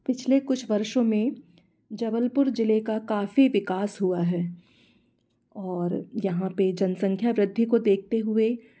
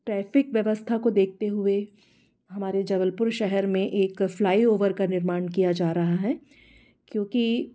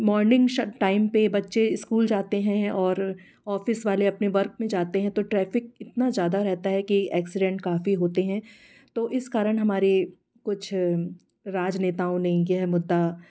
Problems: constant background noise